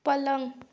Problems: constant background noise